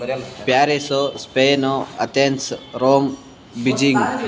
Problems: background conversations at intervals